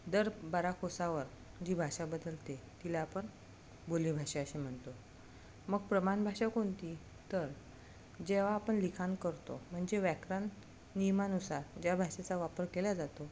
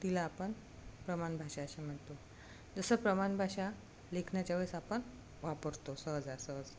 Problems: none marked